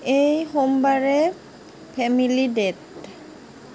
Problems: constant background noise